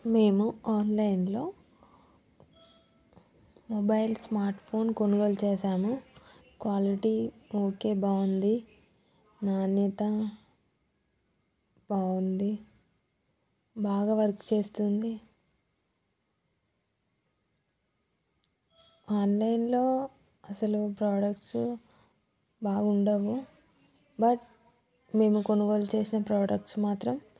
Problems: continuous background conversations